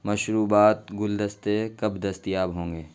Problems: constant background noise